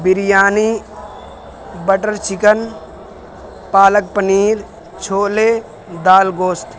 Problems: constant background noise